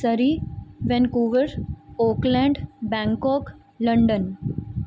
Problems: none marked